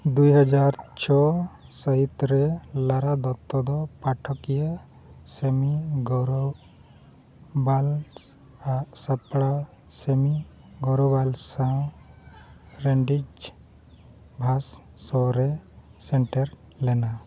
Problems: background sounds at intervals, low volume